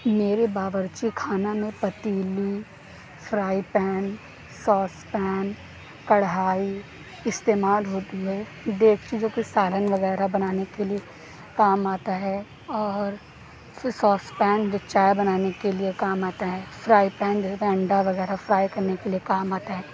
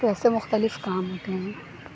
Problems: none marked